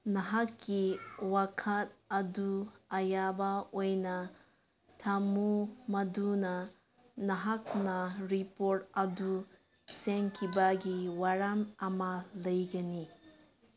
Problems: background sounds at intervals